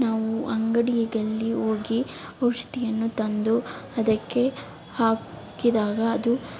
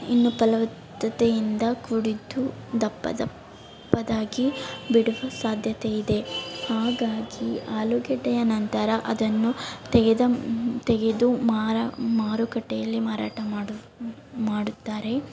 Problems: background sounds at intervals